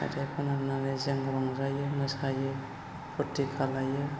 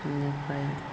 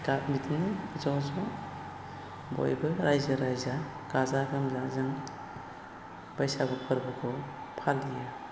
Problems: constant background noise